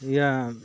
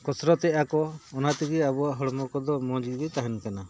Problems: none marked